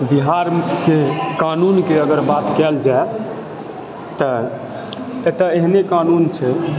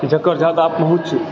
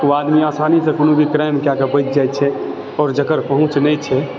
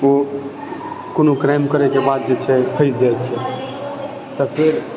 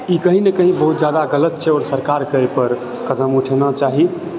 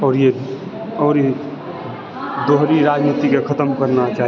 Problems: background conversations at intervals